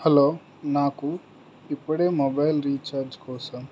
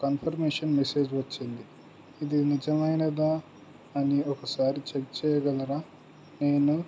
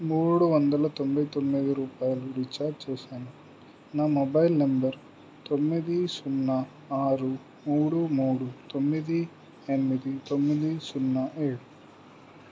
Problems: low volume